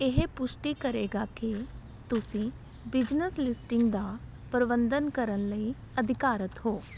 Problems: background conversations at intervals